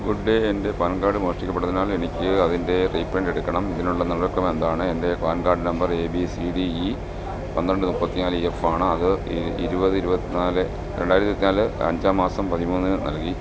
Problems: constant background noise